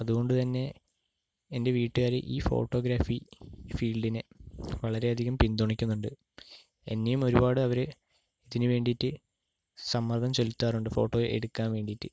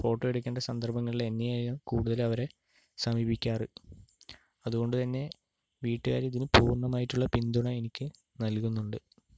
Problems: low volume